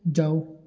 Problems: background sounds at intervals